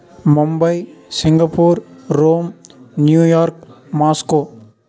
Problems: background conversations at intervals